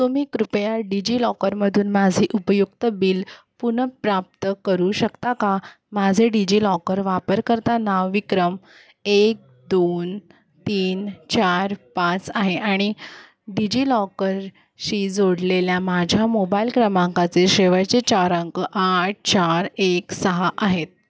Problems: constant background noise